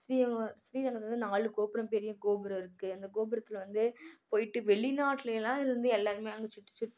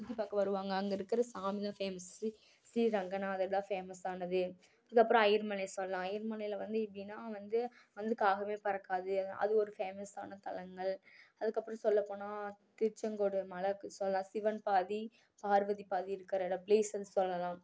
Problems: none marked